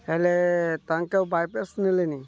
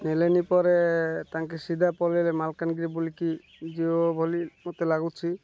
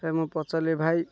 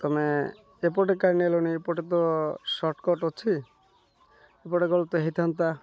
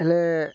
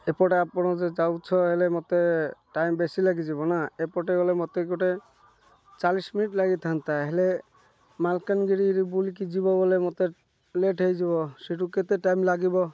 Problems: none marked